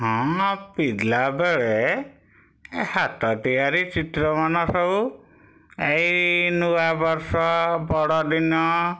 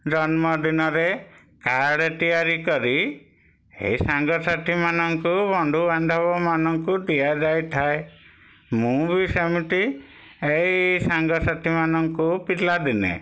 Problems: none marked